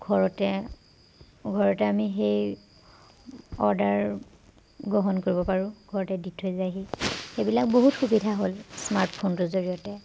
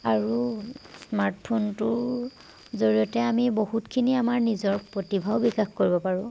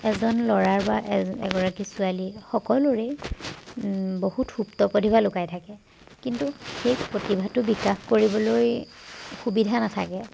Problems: background sounds at intervals